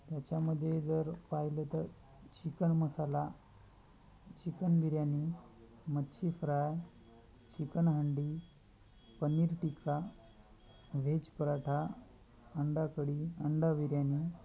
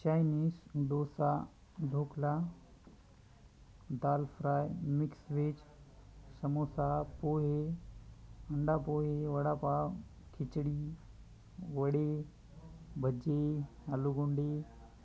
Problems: constant background noise, continuous background conversations